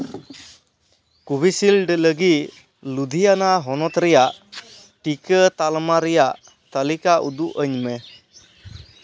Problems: none marked